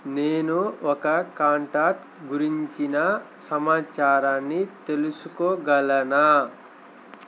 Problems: constant background noise